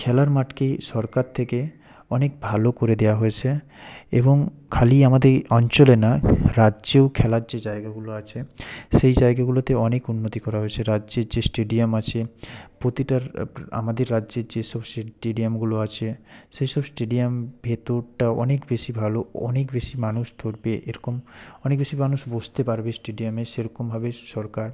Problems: none marked